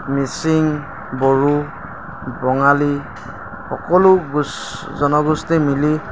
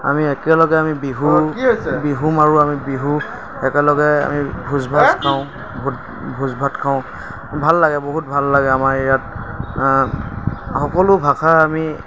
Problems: constant background noise, background conversations at intervals